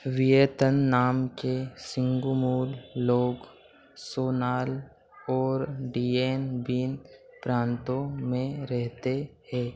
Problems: none marked